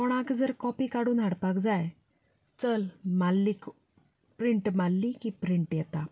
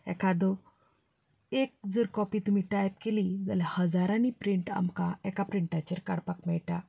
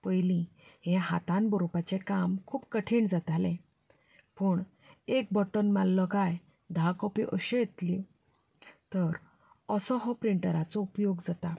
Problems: none marked